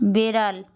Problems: none marked